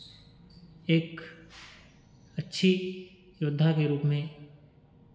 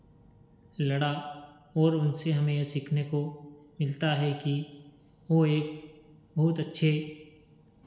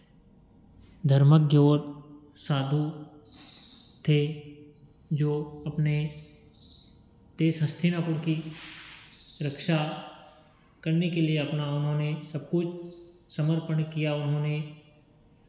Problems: none marked